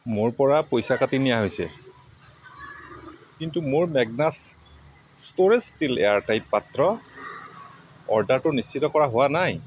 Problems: constant background noise